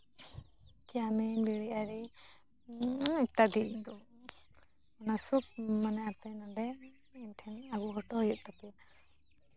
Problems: background sounds at intervals, background conversations at intervals